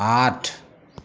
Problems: constant background noise